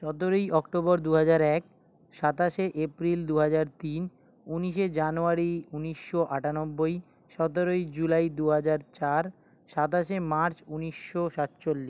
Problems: none marked